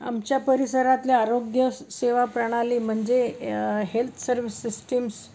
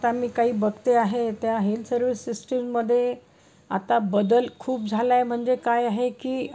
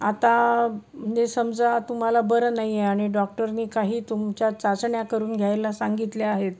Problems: none marked